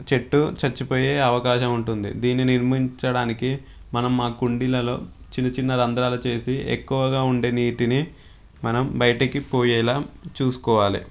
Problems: background sounds at intervals